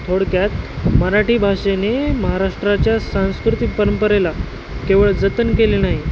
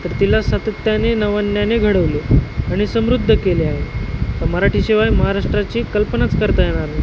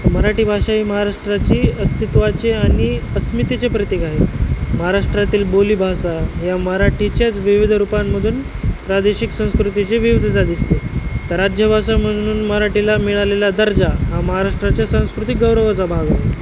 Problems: constant background noise